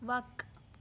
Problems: constant background noise